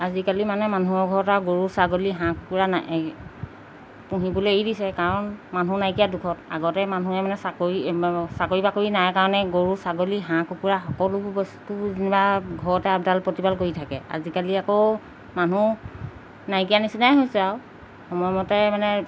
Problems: background sounds at intervals